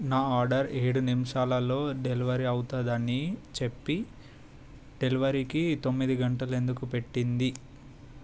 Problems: constant background noise